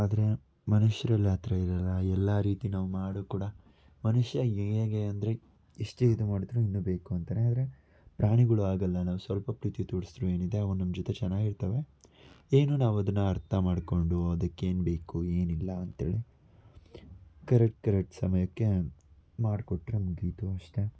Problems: none marked